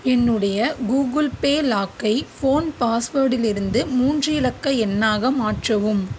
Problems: constant background noise